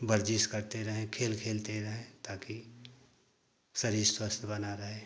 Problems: constant background noise